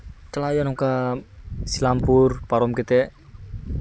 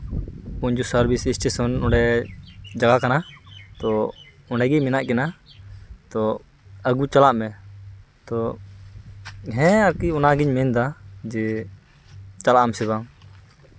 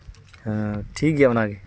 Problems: constant background noise